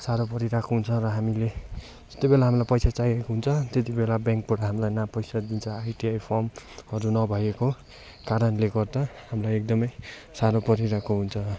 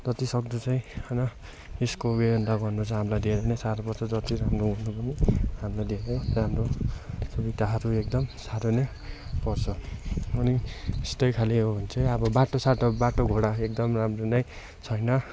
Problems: continuous background conversations